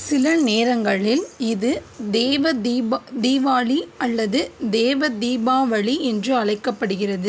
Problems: constant background noise